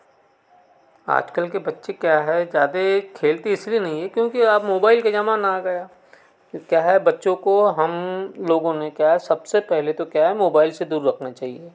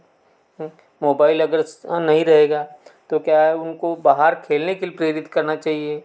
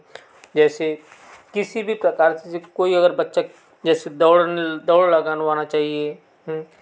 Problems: none marked